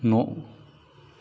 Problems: low volume